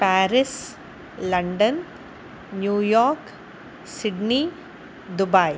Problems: constant background noise